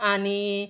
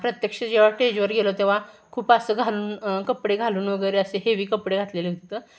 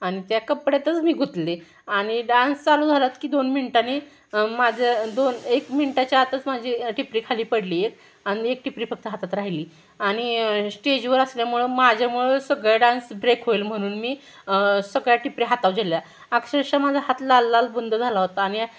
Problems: background sounds at intervals, background conversations at intervals